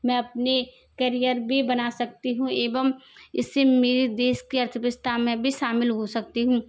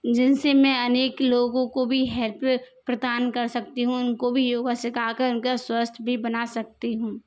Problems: constant background noise